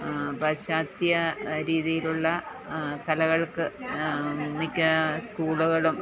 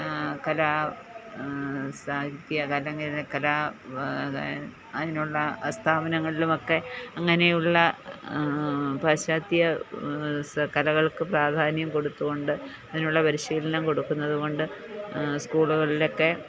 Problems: background conversations at intervals